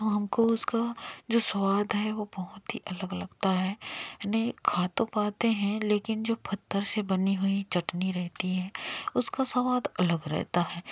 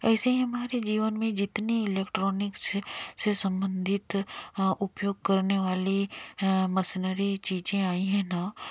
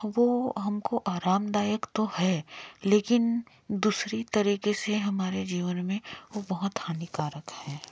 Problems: none marked